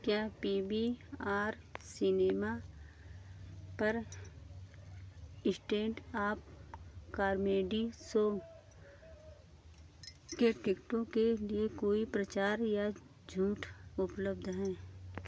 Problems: none marked